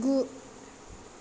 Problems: constant background noise